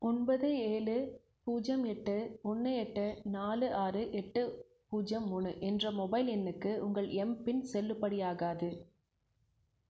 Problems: none marked